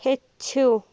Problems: background sounds at intervals